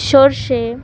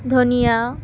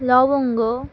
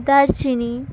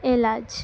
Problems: none marked